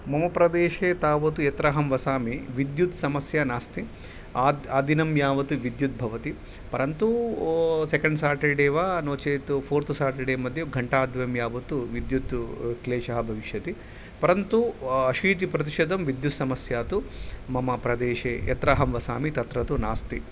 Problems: none marked